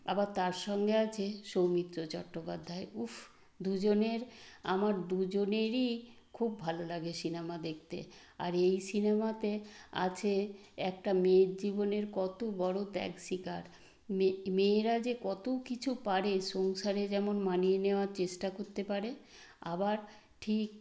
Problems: constant background noise